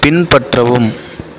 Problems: continuous background conversations